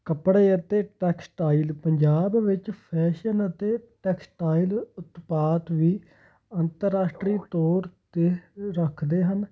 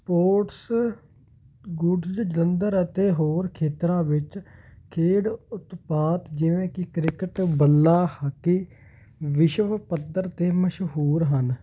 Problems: none marked